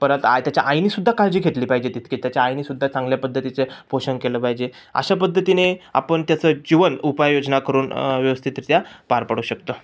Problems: none marked